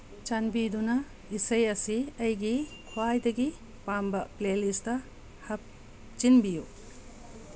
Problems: constant background noise